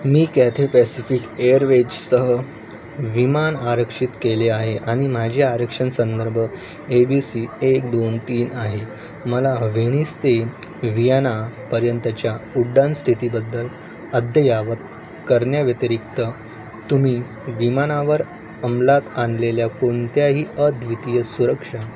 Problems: constant background noise